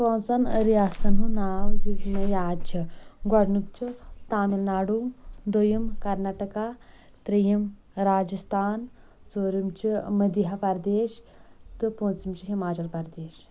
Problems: none marked